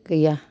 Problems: none marked